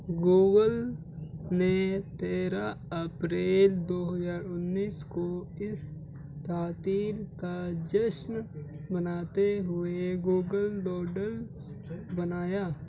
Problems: background sounds at intervals, low volume